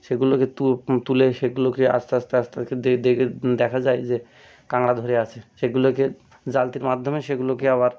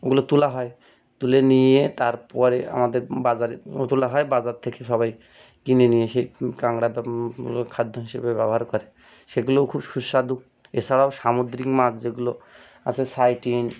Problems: background sounds at intervals